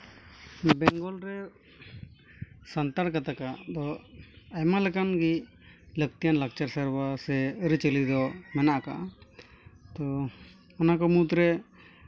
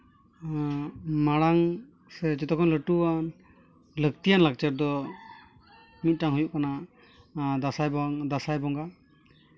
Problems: background sounds at intervals